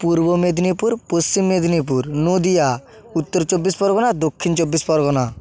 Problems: background sounds at intervals